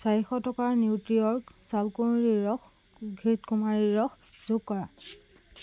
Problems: background sounds at intervals